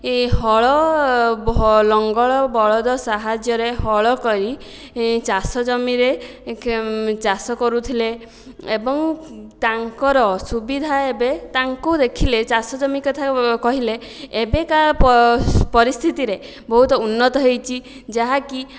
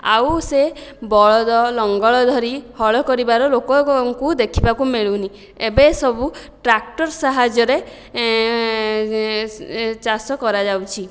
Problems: none marked